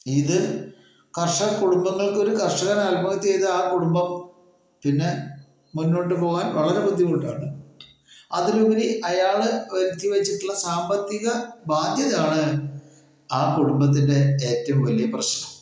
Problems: echo